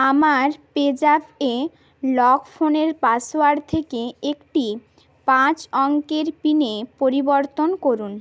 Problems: none marked